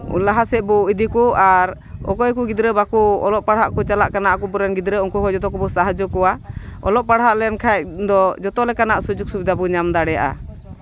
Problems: constant background noise